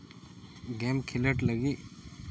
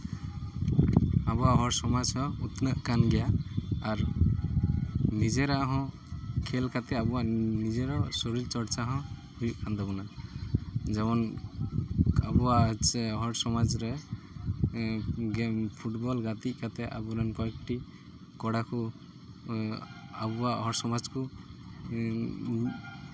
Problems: background sounds at intervals